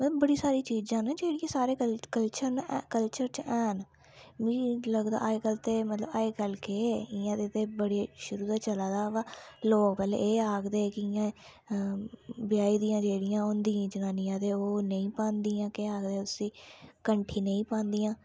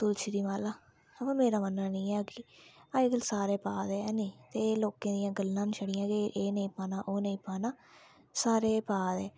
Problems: low volume